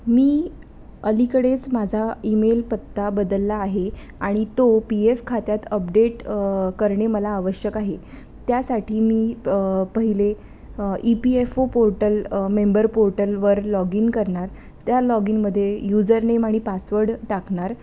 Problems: constant background noise